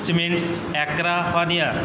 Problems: background sounds at intervals